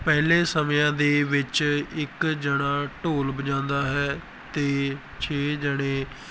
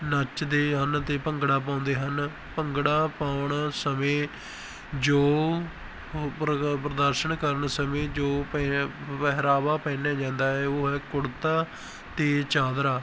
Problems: background sounds at intervals